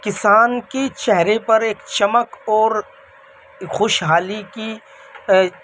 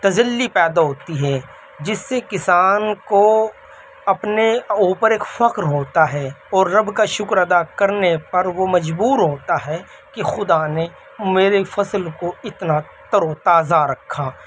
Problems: constant background noise, background conversations at intervals